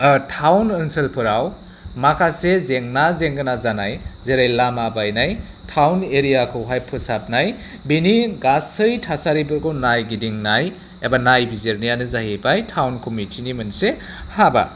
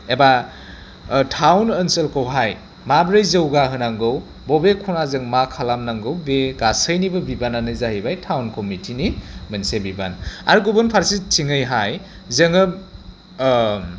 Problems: constant background noise